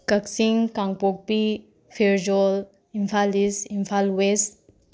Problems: none marked